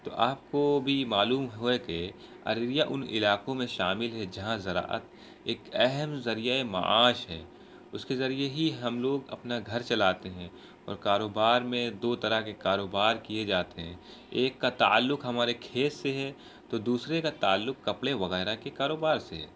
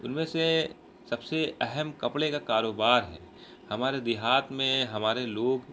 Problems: constant background noise